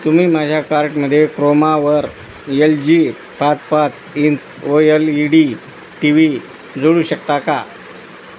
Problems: constant background noise